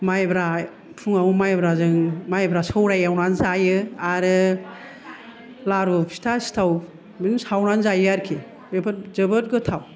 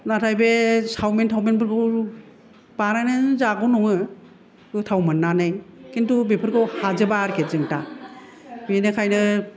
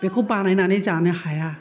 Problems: none marked